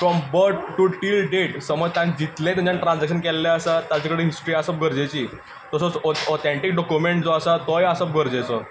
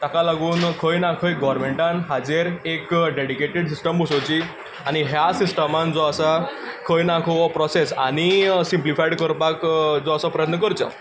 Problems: constant background noise